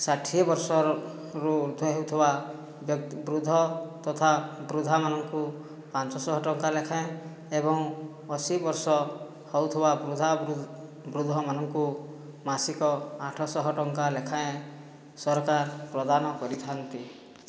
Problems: low volume